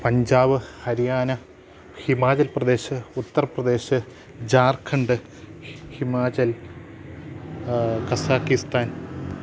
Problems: none marked